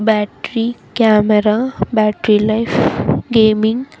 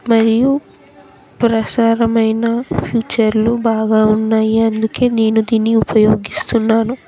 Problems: continuous background conversations